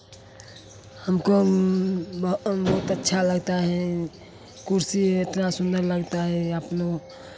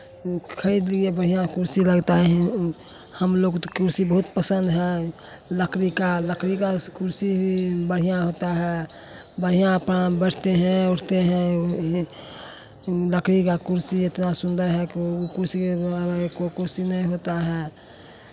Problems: none marked